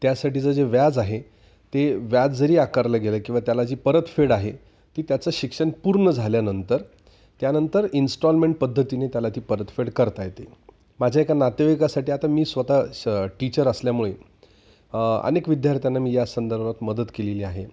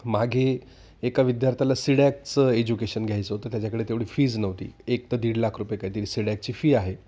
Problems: none marked